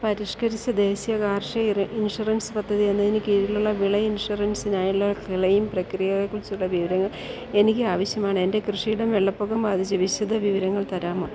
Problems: low volume